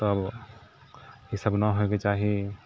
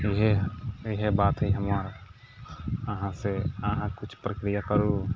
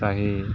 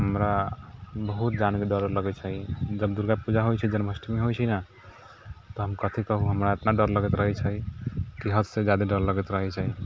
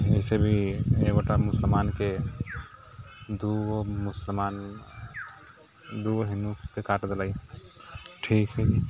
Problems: background sounds at intervals